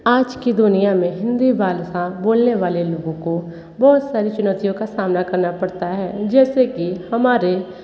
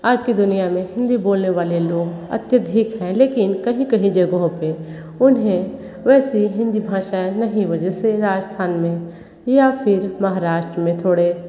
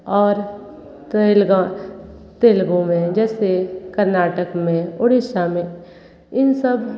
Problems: constant background noise, background conversations at intervals